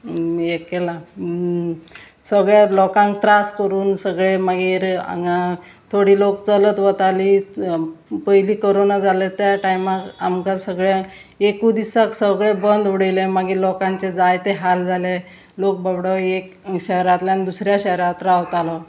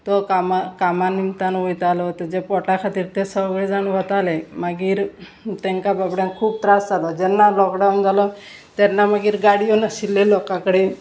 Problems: constant background noise, continuous background conversations